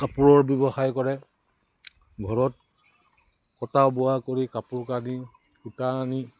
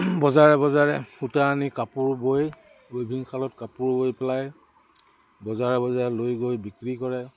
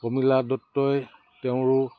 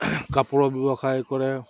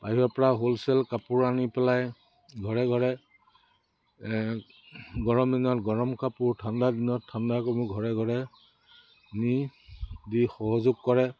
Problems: background sounds at intervals